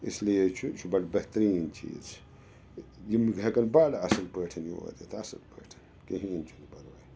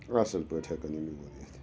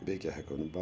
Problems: background sounds at intervals, background conversations at intervals